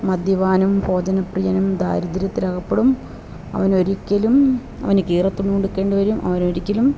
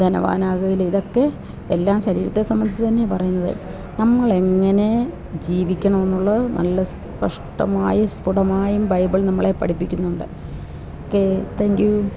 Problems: none marked